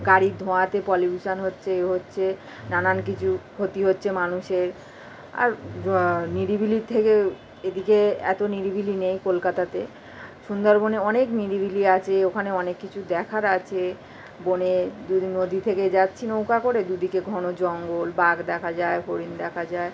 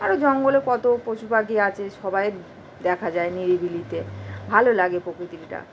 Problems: constant background noise